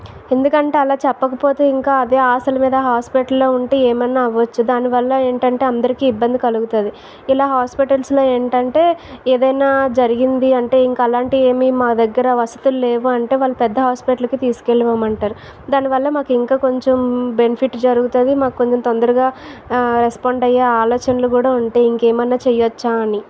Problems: none marked